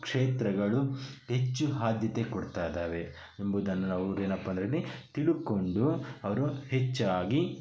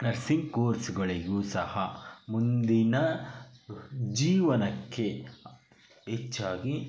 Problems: background sounds at intervals